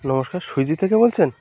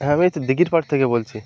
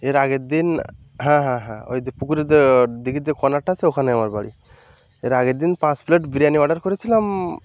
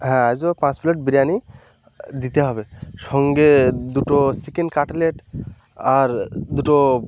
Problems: constant background noise